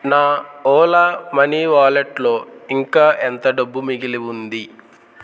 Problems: constant background noise